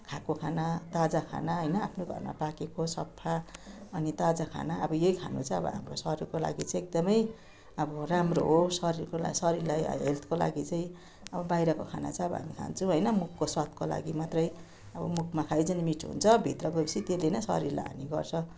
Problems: none marked